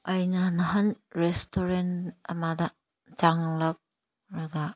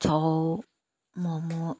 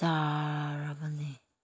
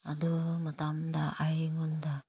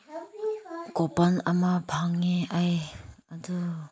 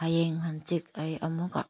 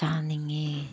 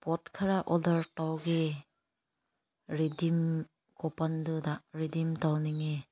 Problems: none marked